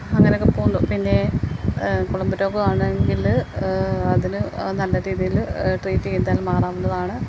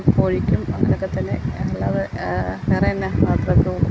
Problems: constant background noise